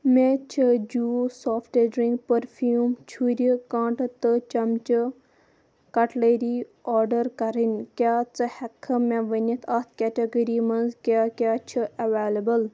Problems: none marked